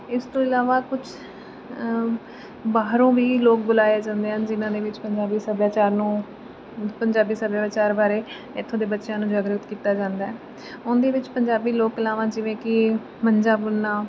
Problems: constant background noise